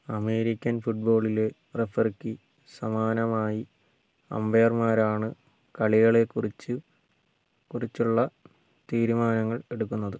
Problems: low volume